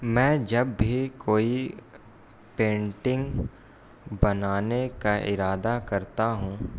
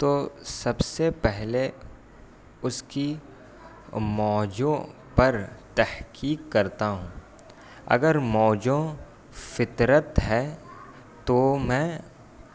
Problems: constant background noise